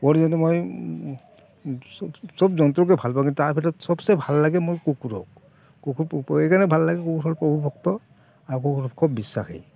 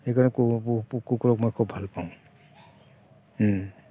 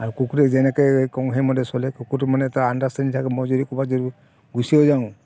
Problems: constant background noise, background conversations at intervals